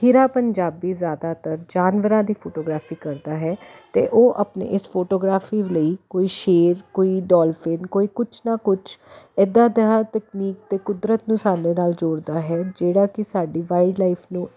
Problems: constant background noise